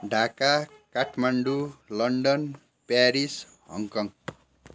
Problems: none marked